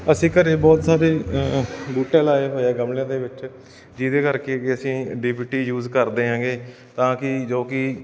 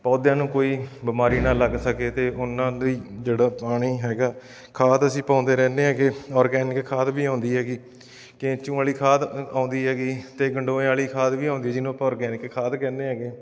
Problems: none marked